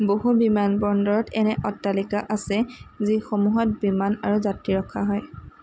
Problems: constant background noise